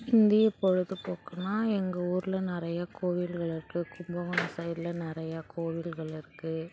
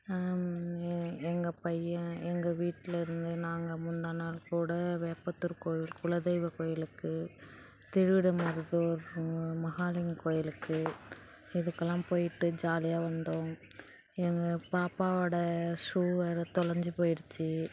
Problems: background sounds at intervals, background conversations at intervals